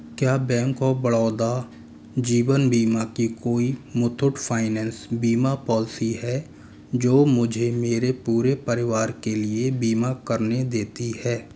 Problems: none marked